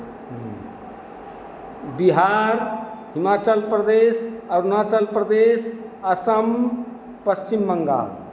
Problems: none marked